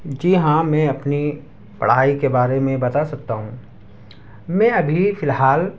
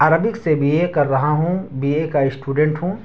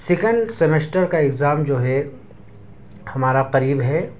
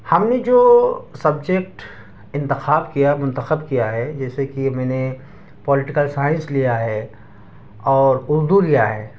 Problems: none marked